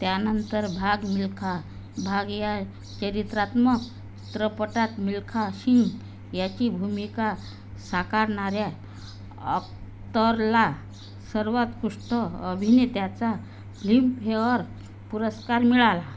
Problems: constant background noise